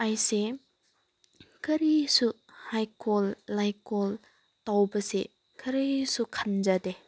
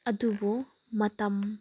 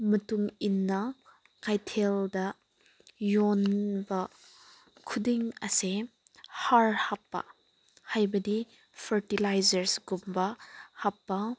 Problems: none marked